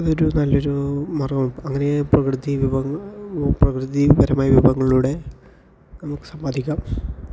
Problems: low volume